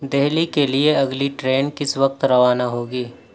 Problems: none marked